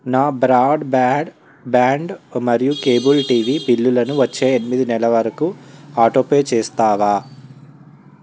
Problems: none marked